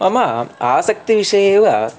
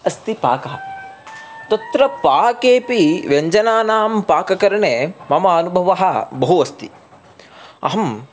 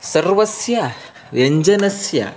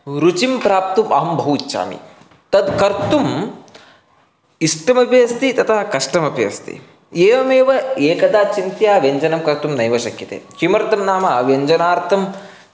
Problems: constant background noise, continuous background conversations